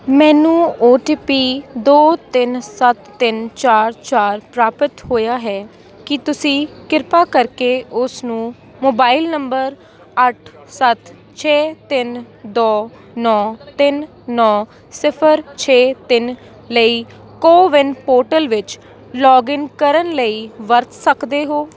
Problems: constant background noise, continuous background conversations